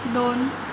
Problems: constant background noise